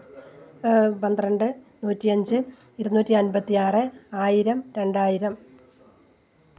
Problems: none marked